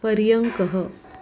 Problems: background sounds at intervals